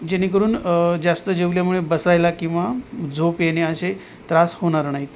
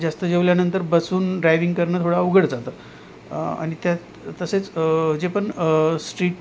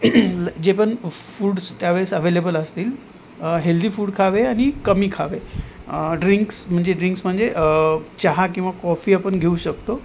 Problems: none marked